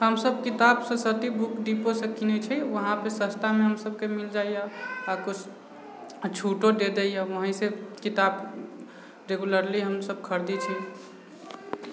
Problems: none marked